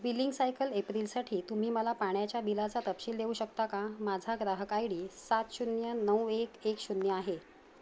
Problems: none marked